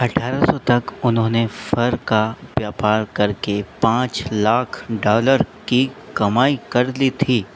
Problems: none marked